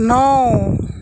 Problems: constant background noise